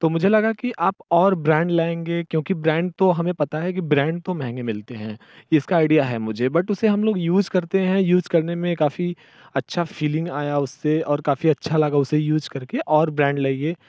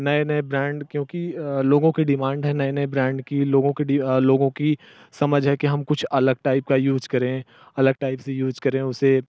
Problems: none marked